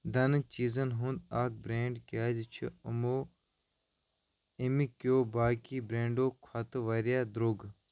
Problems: none marked